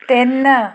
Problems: none marked